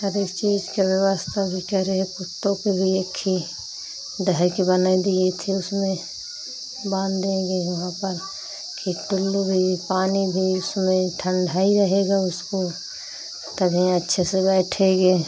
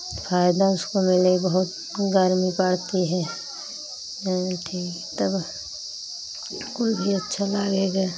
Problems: constant background noise, background conversations at intervals